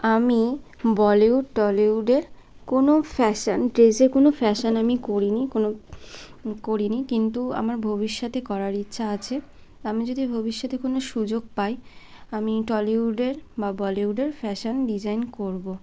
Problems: constant background noise